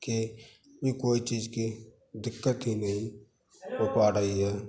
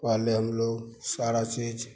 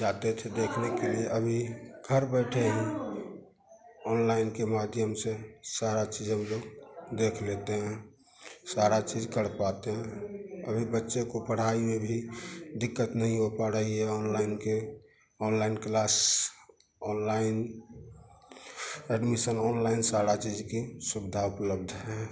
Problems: none marked